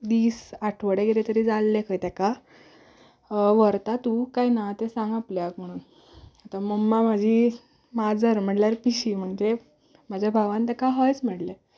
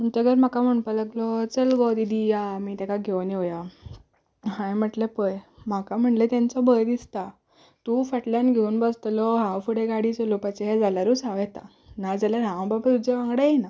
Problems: background sounds at intervals